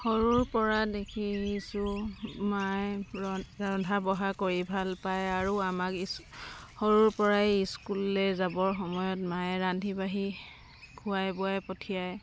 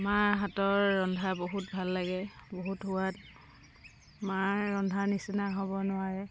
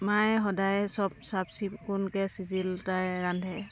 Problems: constant background noise